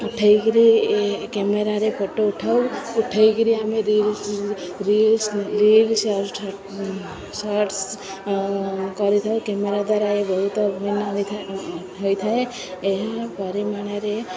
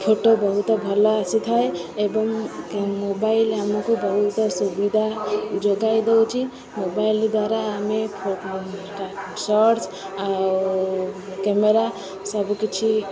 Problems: continuous background conversations